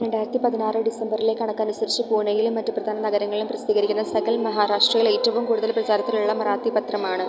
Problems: none marked